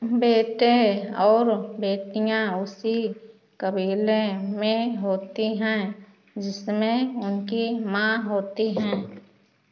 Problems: constant background noise